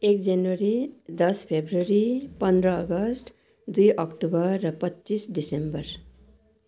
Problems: constant background noise